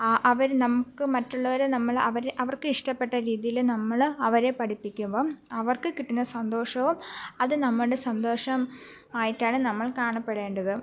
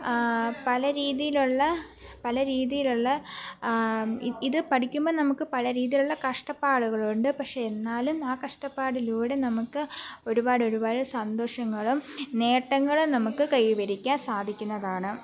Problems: background sounds at intervals